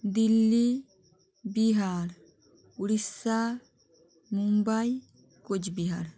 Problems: constant background noise